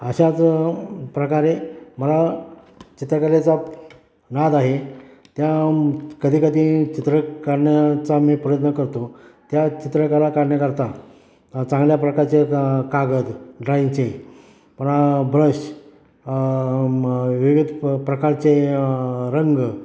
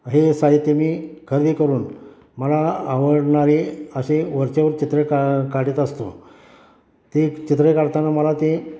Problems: background sounds at intervals, background conversations at intervals